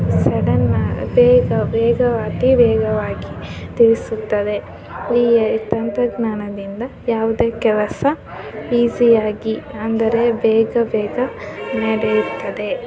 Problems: background sounds at intervals